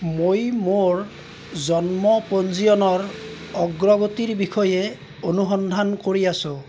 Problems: constant background noise, background conversations at intervals